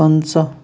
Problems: constant background noise